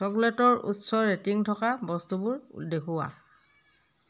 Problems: background conversations at intervals